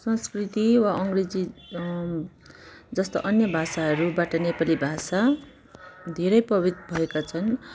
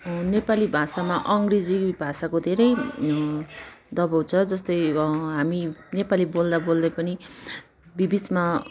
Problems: background conversations at intervals